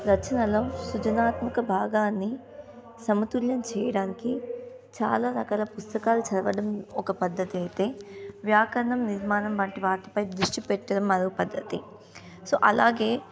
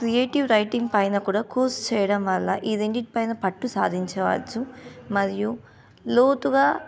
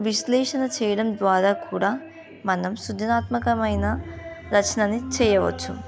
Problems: constant background noise